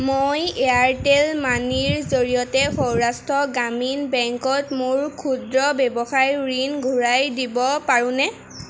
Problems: constant background noise